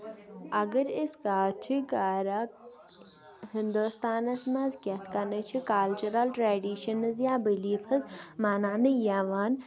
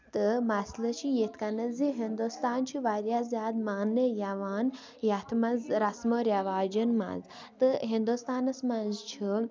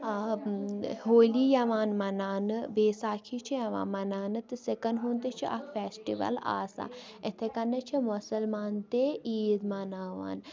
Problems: constant background noise